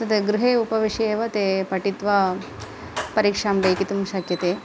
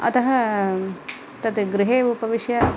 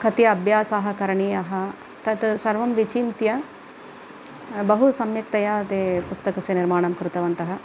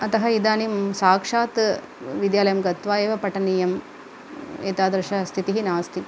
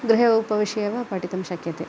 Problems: constant background noise